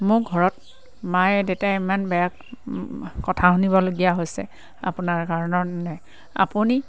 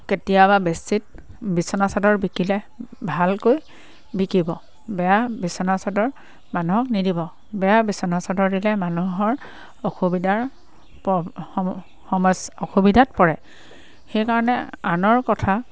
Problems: constant background noise, background conversations at intervals